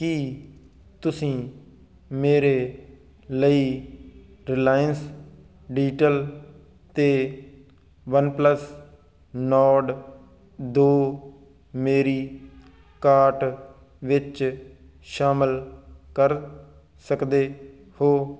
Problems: constant background noise